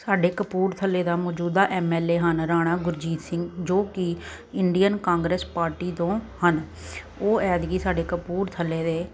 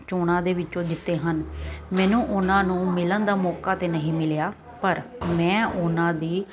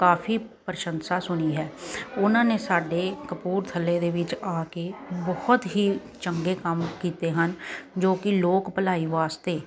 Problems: none marked